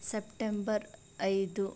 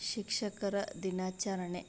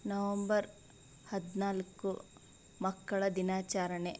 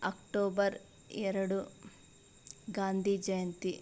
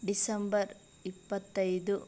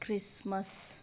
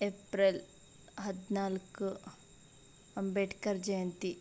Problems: none marked